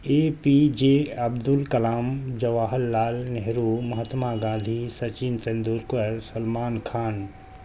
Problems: constant background noise